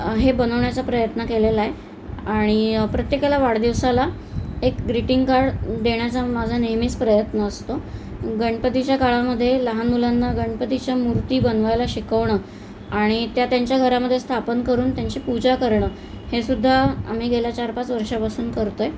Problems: constant background noise